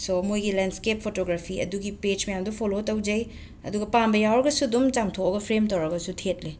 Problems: background sounds at intervals